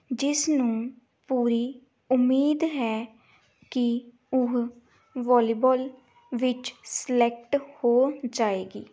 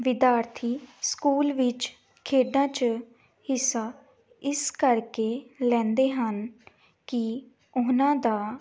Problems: background sounds at intervals